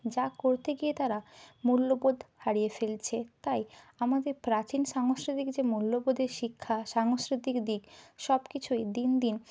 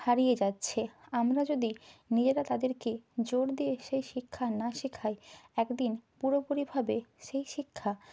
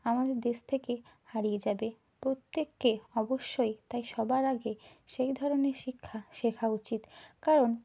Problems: none marked